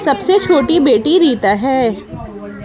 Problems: constant background noise